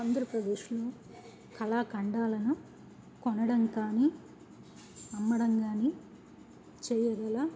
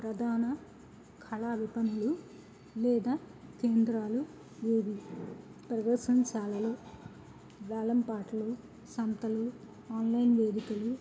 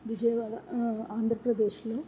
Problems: background sounds at intervals, low volume